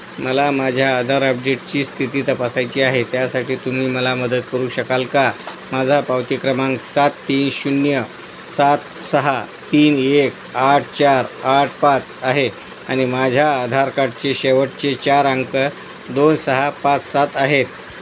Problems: constant background noise